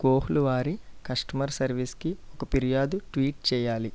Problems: low volume